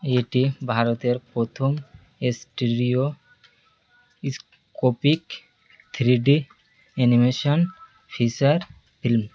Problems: constant background noise